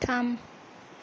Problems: background sounds at intervals